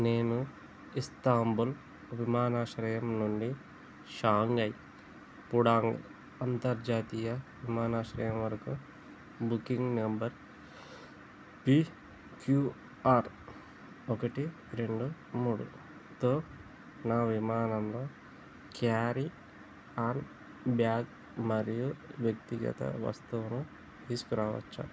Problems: constant background noise